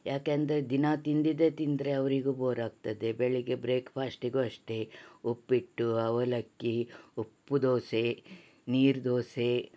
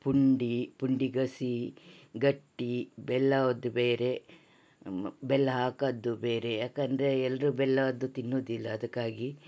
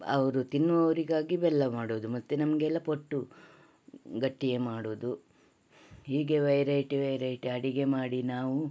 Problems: none marked